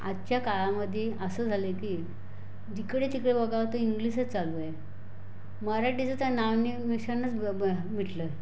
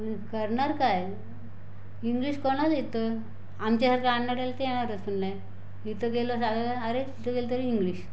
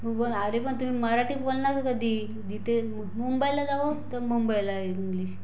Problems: none marked